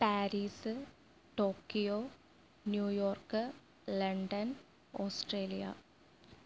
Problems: low volume